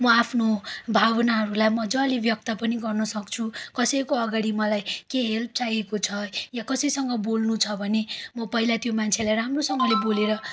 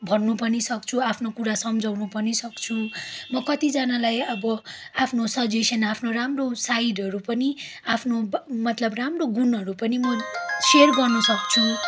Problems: constant background noise